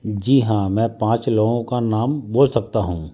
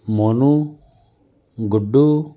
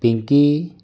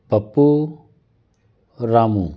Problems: constant background noise, background conversations at intervals